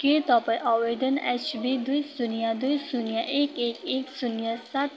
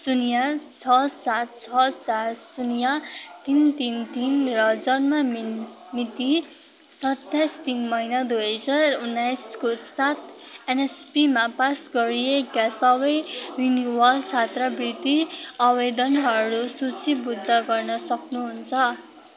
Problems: constant background noise, continuous background conversations